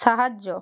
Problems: none marked